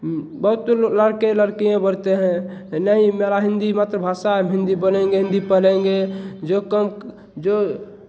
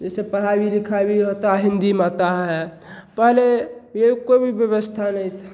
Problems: none marked